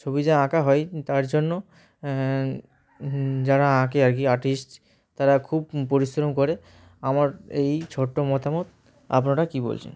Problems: background sounds at intervals, background conversations at intervals